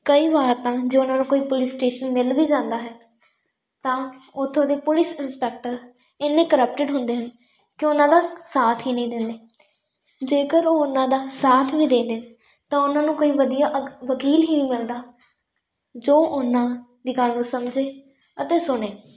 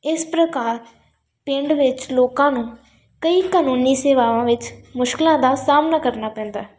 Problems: constant background noise